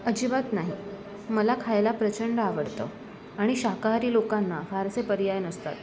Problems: constant background noise, continuous background conversations